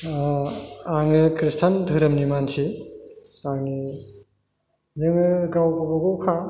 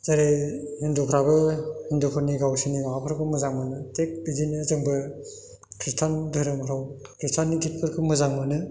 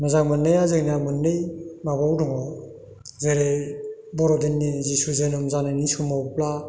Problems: none marked